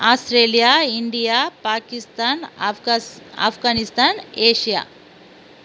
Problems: constant background noise